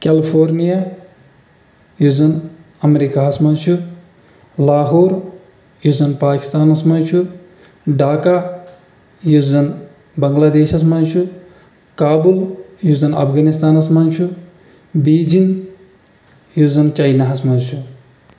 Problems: none marked